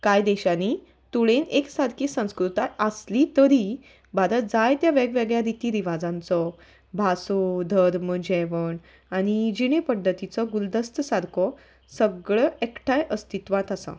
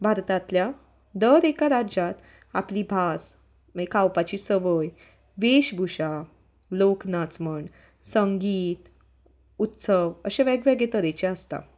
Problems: background sounds at intervals